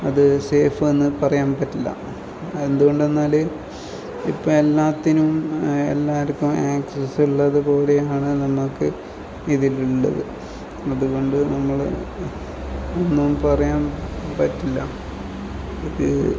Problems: background sounds at intervals, low volume